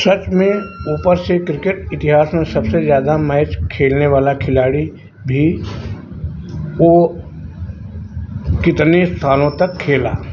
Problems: none marked